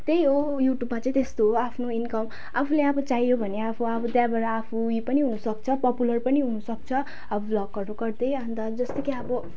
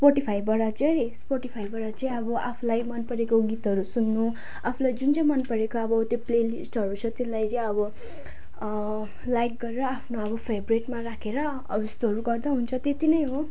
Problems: none marked